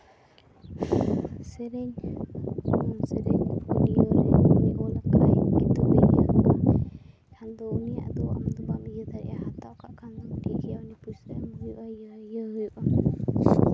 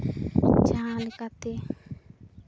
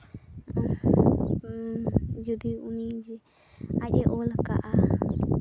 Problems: background sounds at intervals, low volume